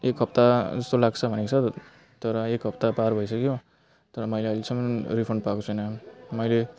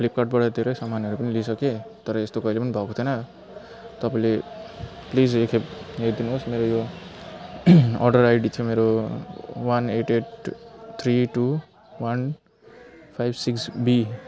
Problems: background sounds at intervals